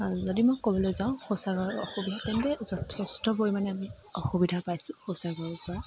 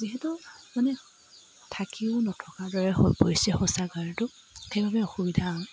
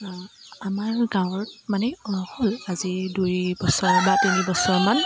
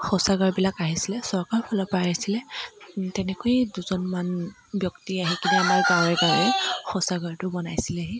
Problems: constant background noise